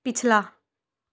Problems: none marked